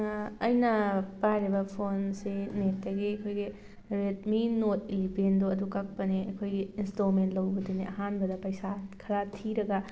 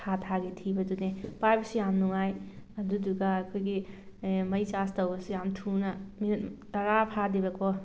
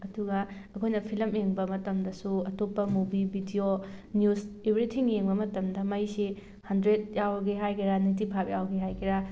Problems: background sounds at intervals